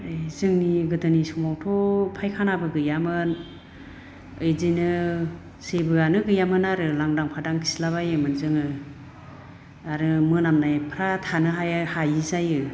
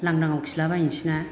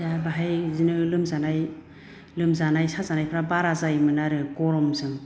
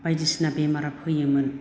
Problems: low volume